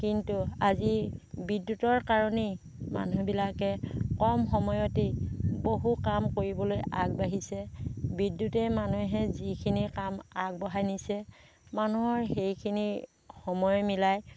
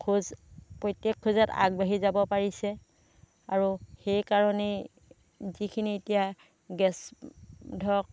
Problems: none marked